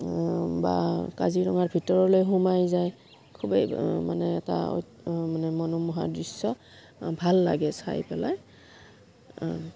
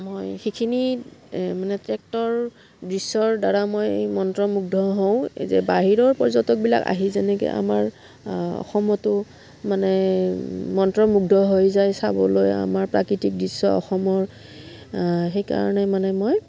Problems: background sounds at intervals